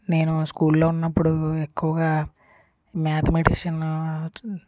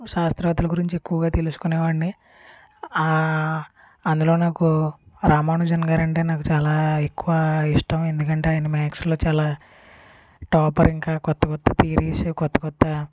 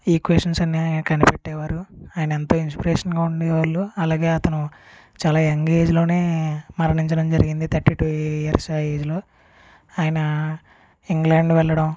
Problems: background sounds at intervals